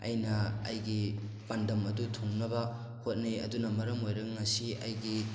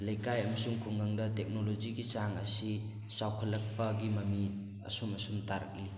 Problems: constant background noise